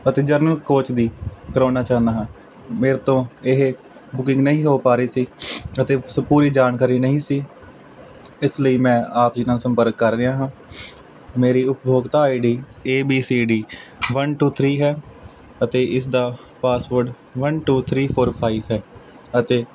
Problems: constant background noise